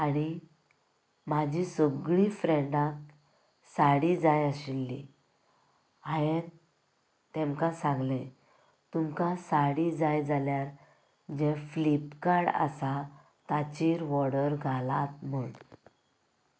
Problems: none marked